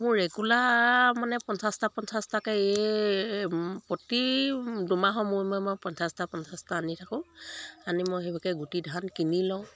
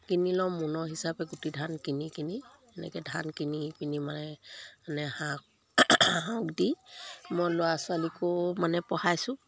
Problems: none marked